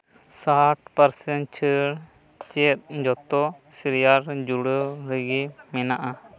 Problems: background conversations at intervals